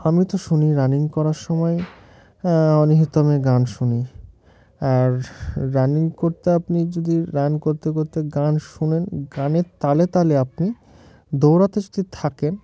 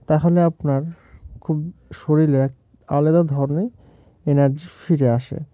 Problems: background sounds at intervals